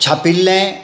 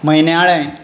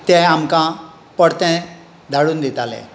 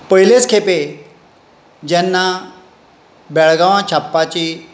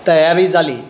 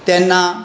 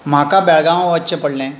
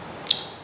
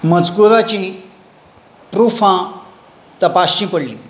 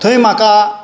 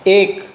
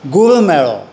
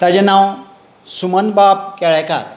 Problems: none marked